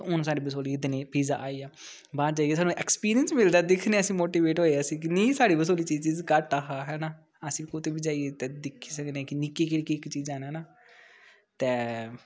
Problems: none marked